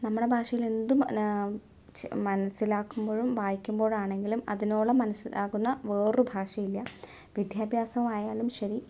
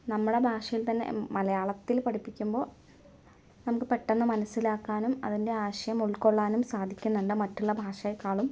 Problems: low volume